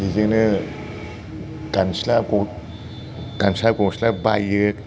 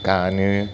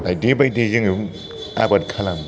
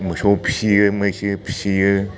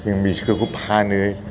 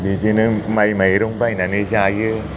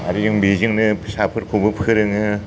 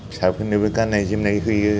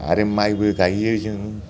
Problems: low volume